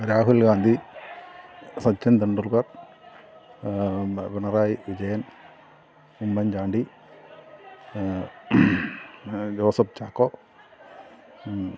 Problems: continuous background conversations